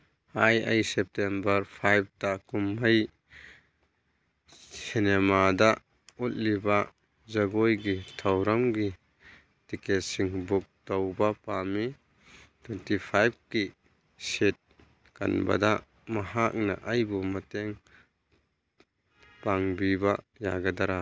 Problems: background sounds at intervals